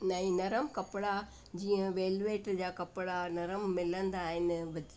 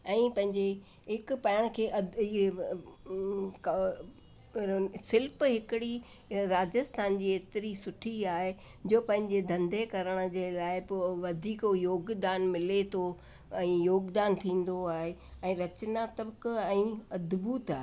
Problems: constant background noise